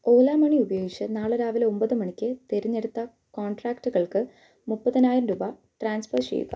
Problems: low volume